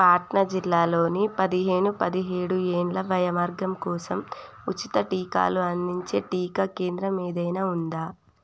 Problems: low volume